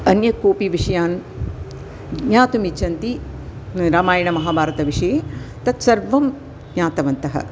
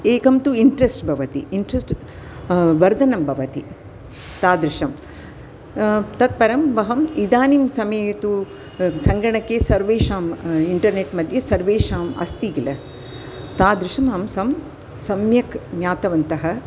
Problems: constant background noise